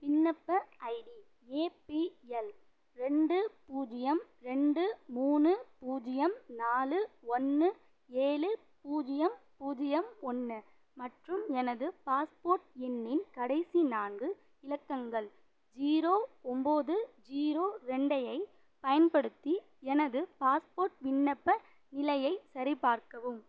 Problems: none marked